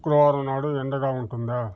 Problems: constant background noise